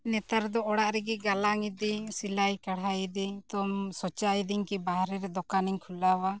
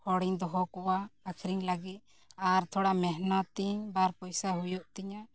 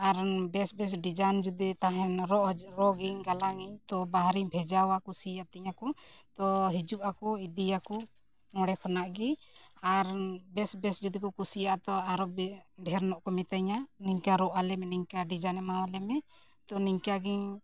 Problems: background conversations at intervals